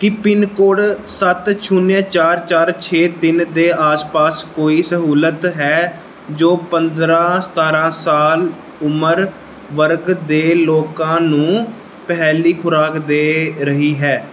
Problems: none marked